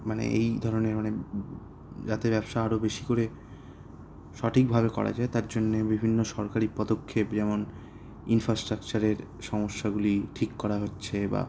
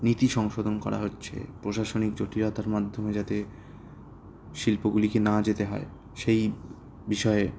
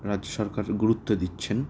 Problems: none marked